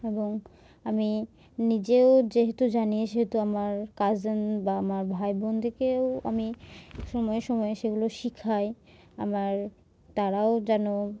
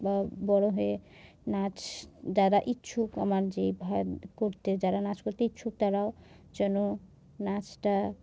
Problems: background sounds at intervals